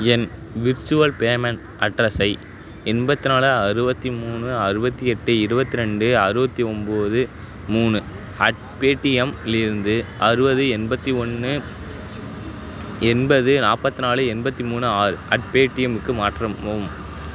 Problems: none marked